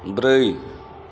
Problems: background sounds at intervals